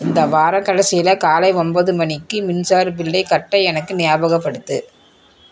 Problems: background sounds at intervals, background conversations at intervals